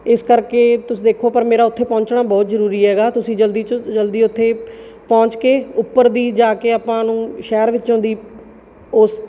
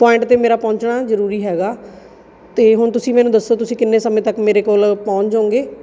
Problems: background sounds at intervals, background conversations at intervals